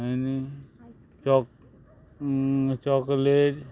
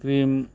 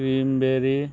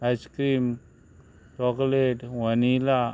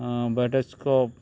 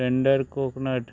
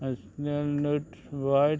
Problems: background sounds at intervals